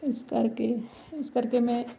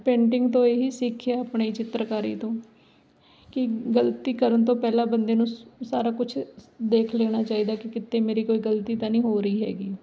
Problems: background sounds at intervals